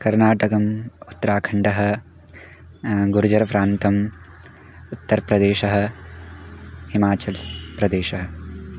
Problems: background sounds at intervals